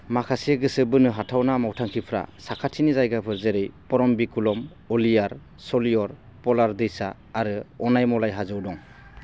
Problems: constant background noise